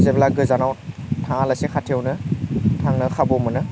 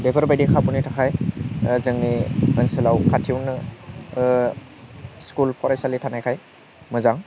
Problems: constant background noise